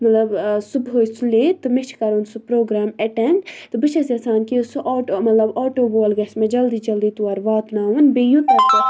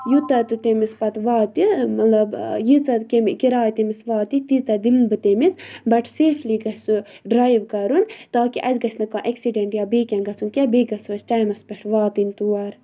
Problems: low volume